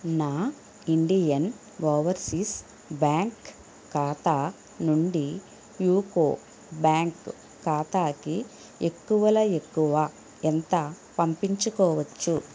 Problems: constant background noise, low volume